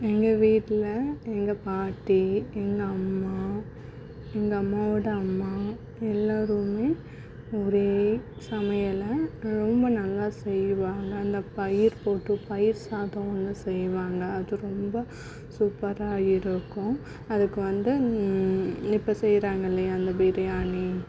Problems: background sounds at intervals